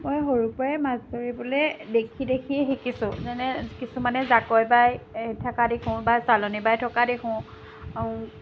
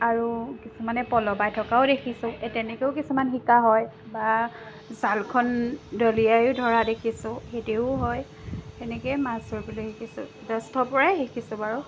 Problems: constant background noise